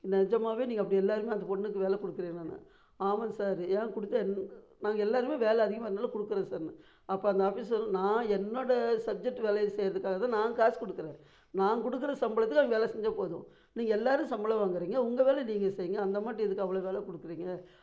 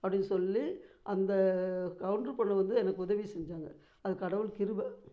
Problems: none marked